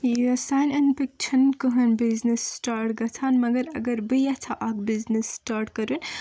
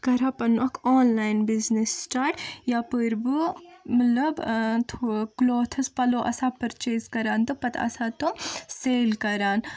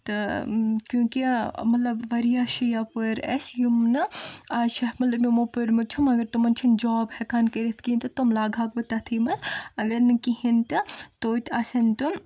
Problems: none marked